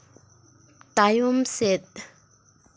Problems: none marked